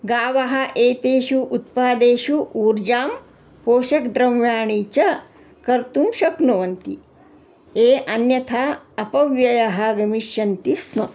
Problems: constant background noise